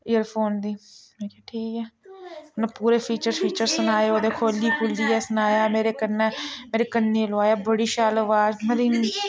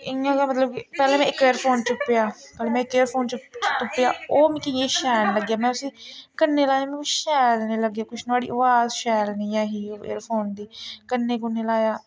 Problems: constant background noise, background conversations at intervals